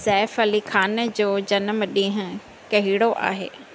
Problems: none marked